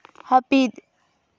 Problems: none marked